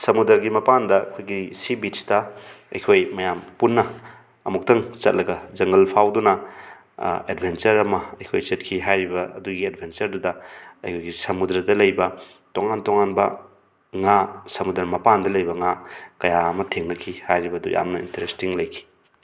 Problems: background sounds at intervals